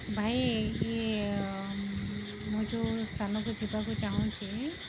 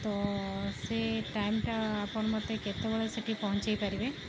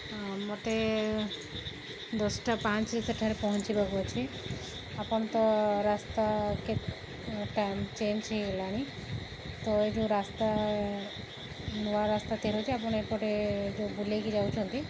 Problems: background sounds at intervals